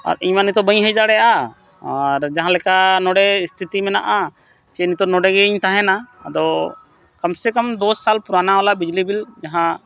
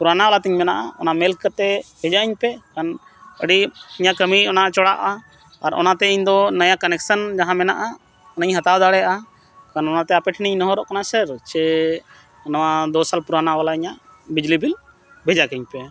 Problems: none marked